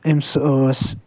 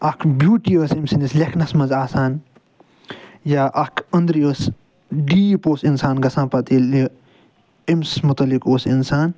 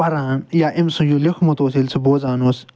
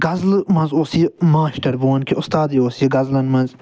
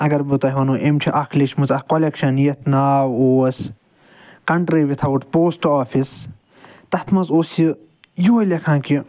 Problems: none marked